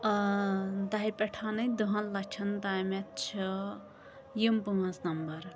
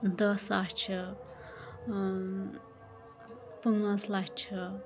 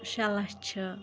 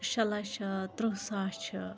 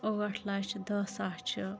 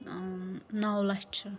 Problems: constant background noise